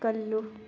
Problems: none marked